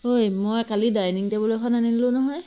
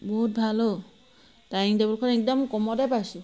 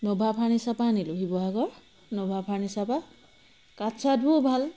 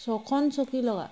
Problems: constant background noise